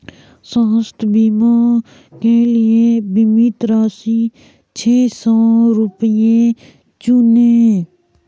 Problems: none marked